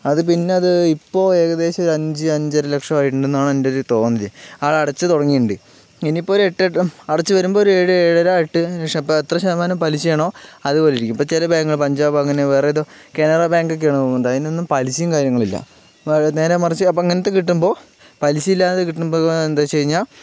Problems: background sounds at intervals